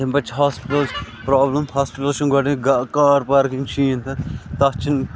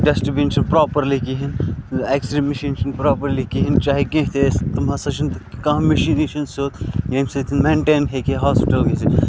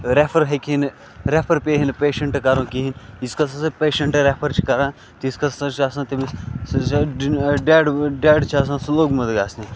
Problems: constant background noise